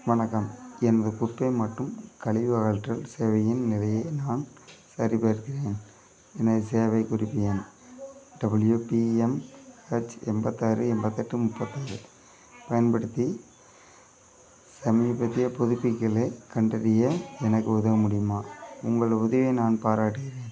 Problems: continuous background conversations